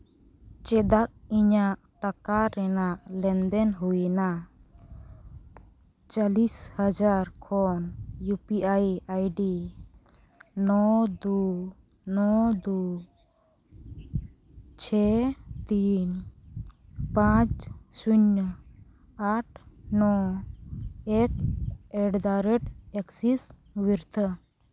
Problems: none marked